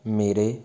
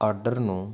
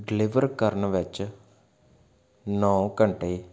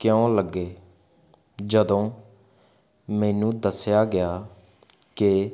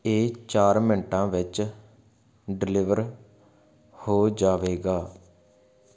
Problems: constant background noise